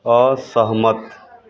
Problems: constant background noise